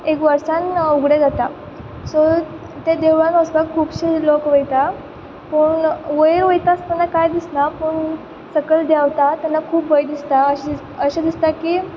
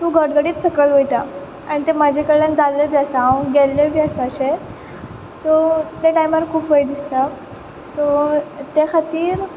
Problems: constant background noise